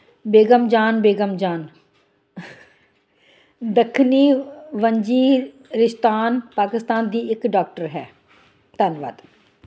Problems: none marked